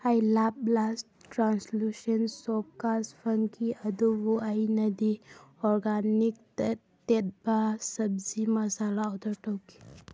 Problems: none marked